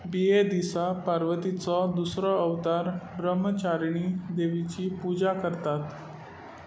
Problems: constant background noise